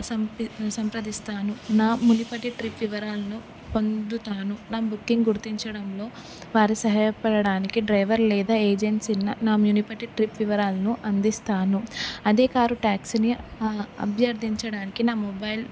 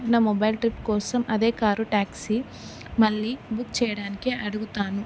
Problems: none marked